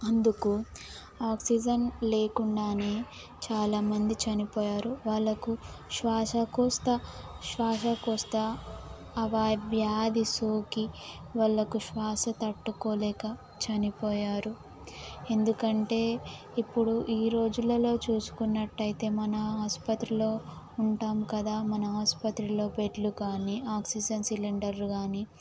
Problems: constant background noise